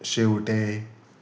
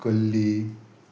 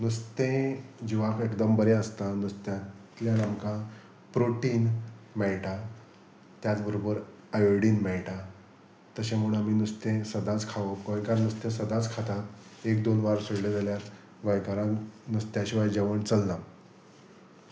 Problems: none marked